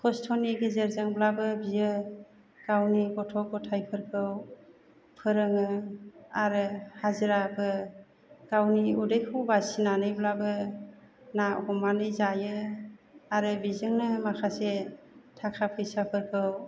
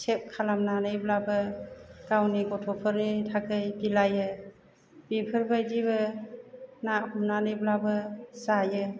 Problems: low volume